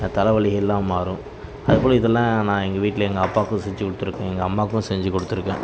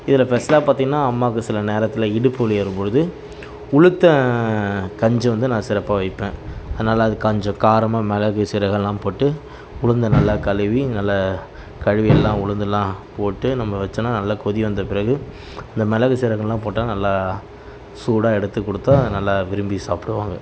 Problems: none marked